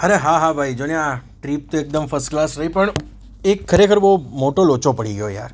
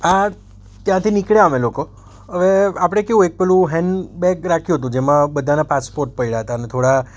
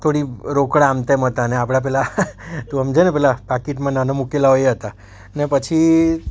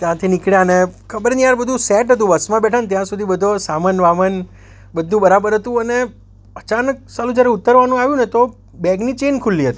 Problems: none marked